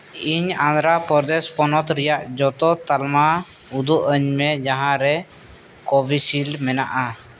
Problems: constant background noise